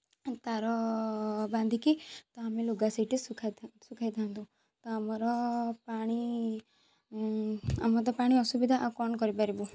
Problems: background sounds at intervals, background conversations at intervals